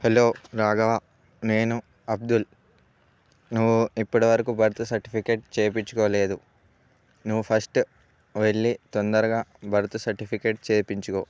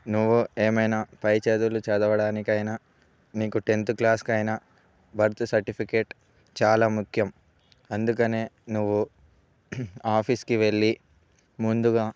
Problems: none marked